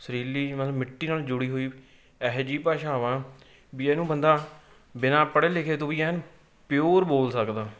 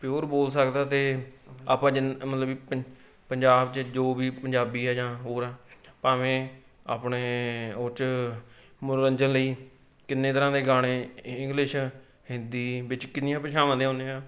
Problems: none marked